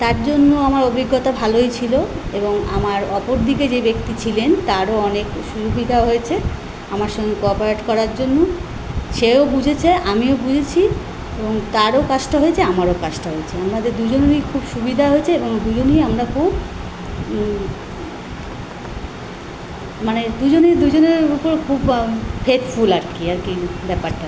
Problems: none marked